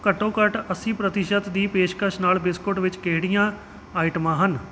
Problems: background sounds at intervals